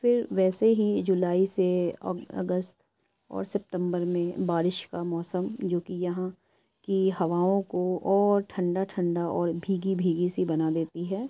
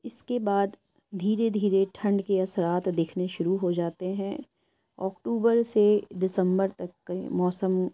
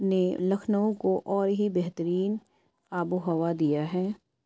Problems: none marked